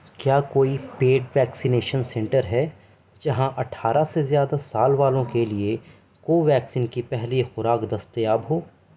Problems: constant background noise